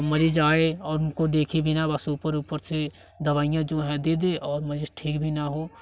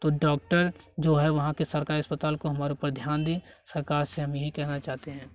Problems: none marked